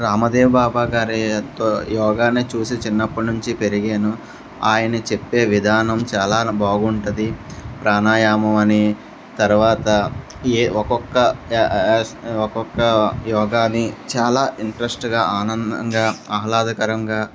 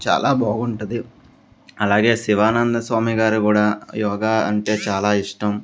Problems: none marked